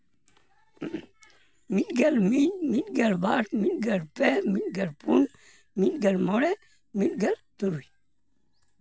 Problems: background sounds at intervals